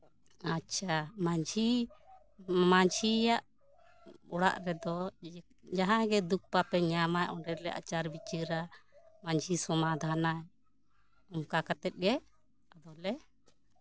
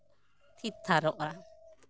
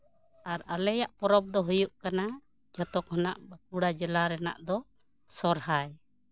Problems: background sounds at intervals